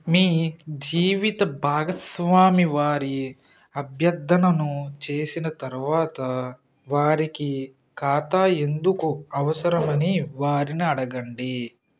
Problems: constant background noise